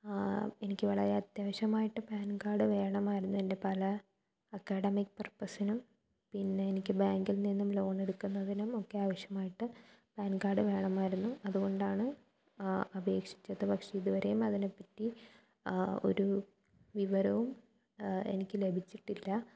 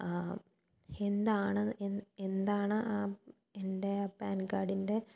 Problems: low volume